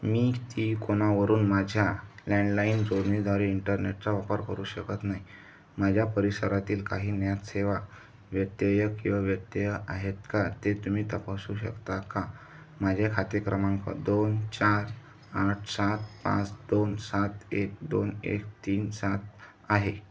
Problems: none marked